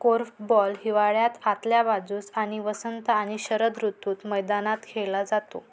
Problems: background sounds at intervals